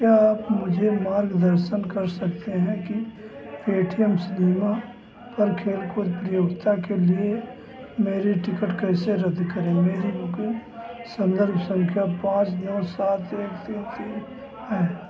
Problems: constant background noise, background conversations at intervals